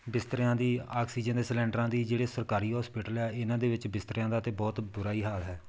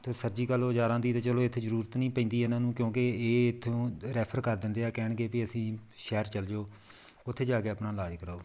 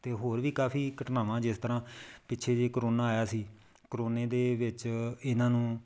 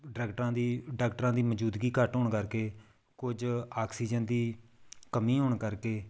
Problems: background sounds at intervals